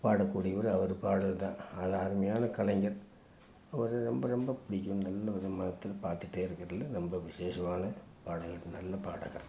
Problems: constant background noise